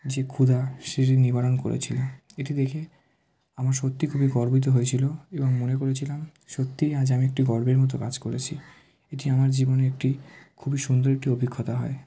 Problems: constant background noise